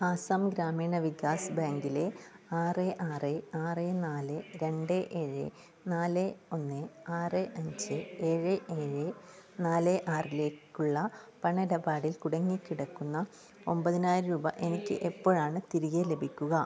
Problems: low volume